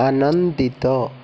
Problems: constant background noise